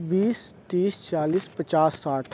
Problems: background sounds at intervals